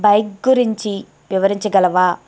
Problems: none marked